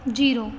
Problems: background sounds at intervals